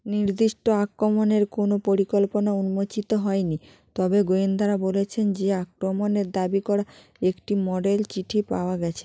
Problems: none marked